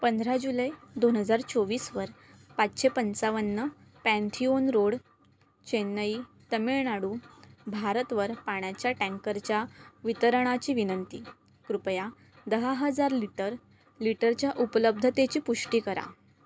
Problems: none marked